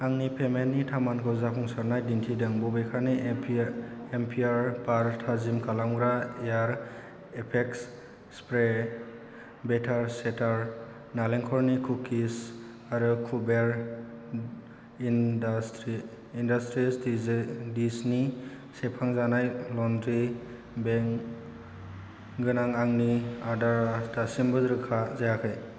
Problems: none marked